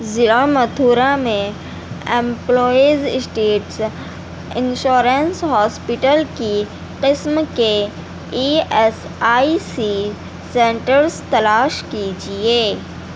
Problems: constant background noise